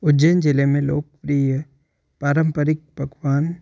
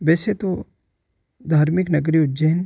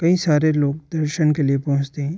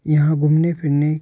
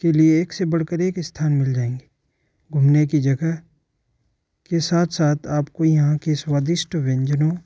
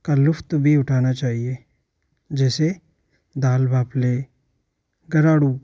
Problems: background sounds at intervals